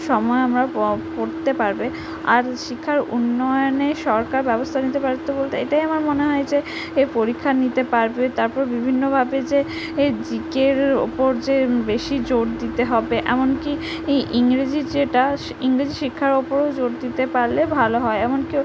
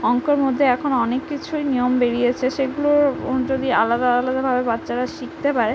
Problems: none marked